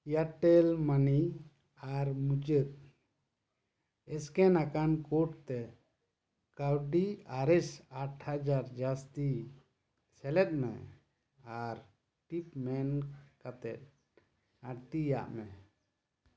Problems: none marked